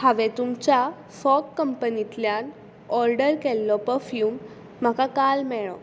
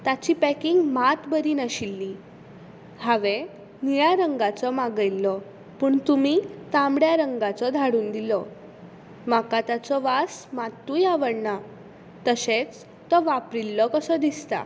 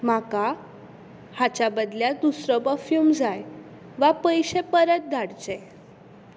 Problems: background sounds at intervals